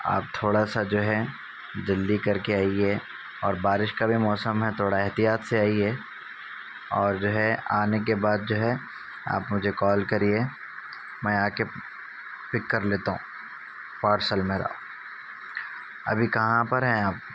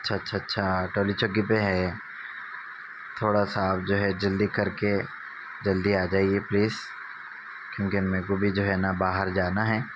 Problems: constant background noise